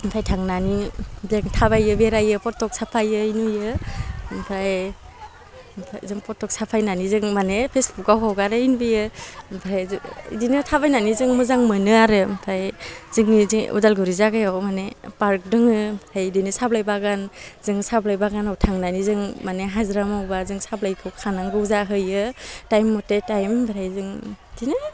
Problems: none marked